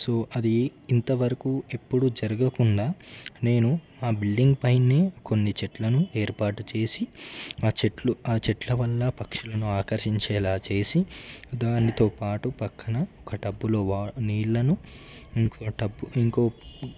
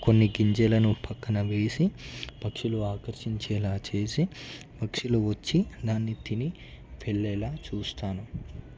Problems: low volume